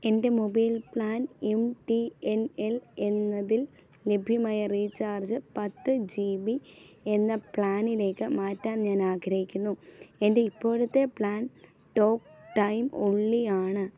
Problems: none marked